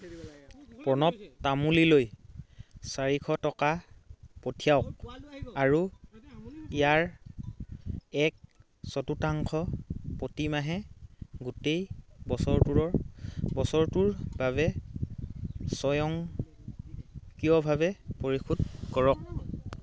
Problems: continuous background conversations